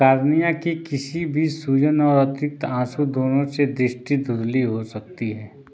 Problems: none marked